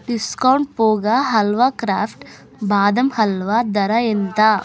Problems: constant background noise, continuous background conversations